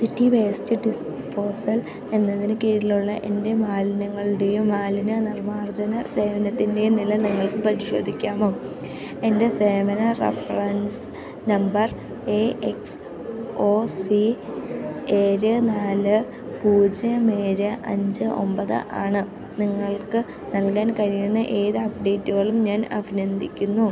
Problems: none marked